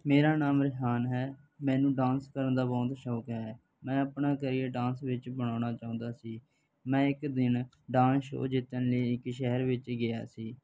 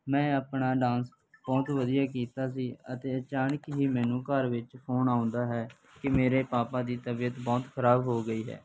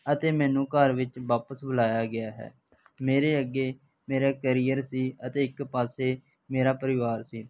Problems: background sounds at intervals